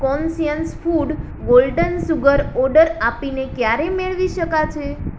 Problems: constant background noise